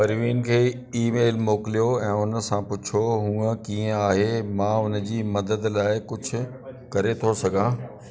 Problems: constant background noise, echo